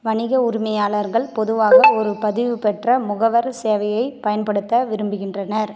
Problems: background sounds at intervals